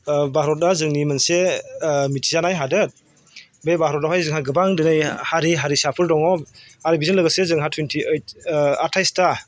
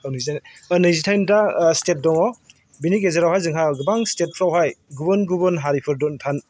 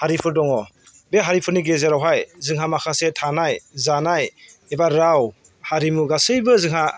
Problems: none marked